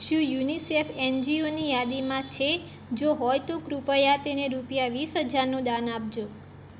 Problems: constant background noise